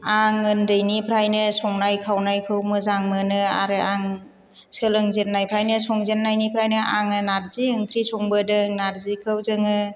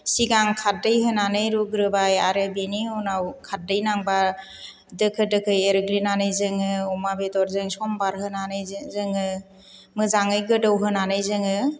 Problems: none marked